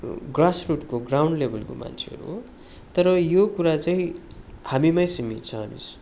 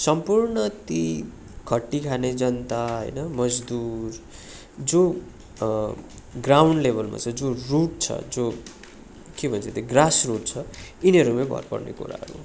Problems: continuous background conversations